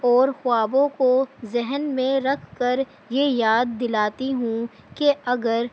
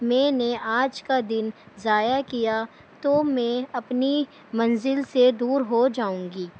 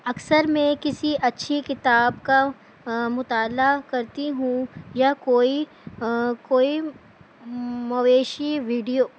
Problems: constant background noise